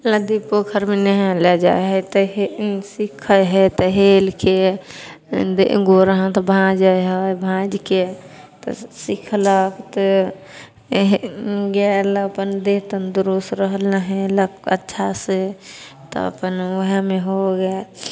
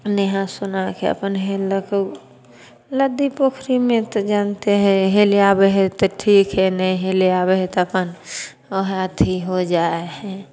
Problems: none marked